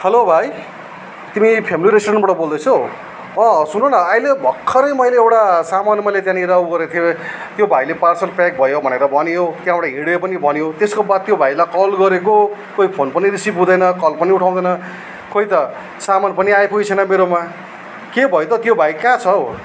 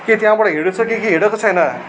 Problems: background sounds at intervals